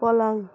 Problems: background sounds at intervals